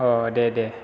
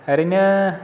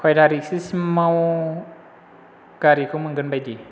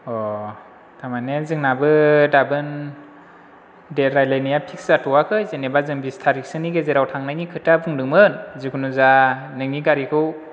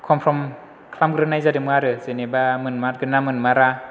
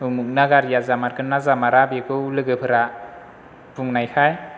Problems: none marked